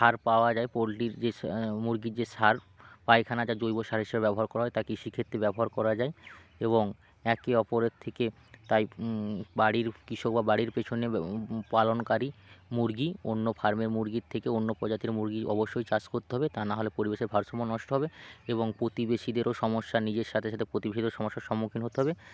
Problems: none marked